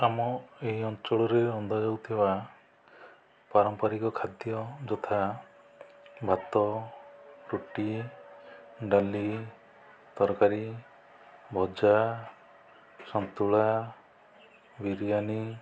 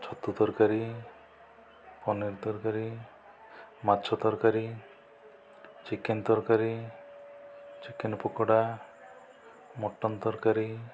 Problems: low volume